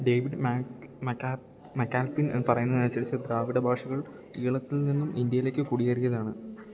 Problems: low volume